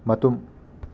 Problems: constant background noise